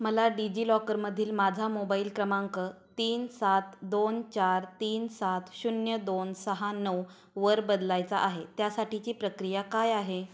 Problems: background sounds at intervals